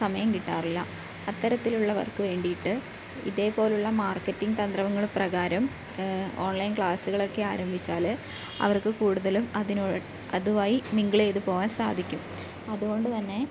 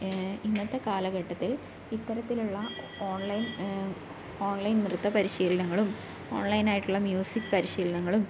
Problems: background sounds at intervals